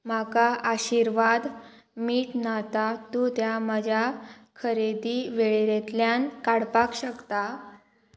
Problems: constant background noise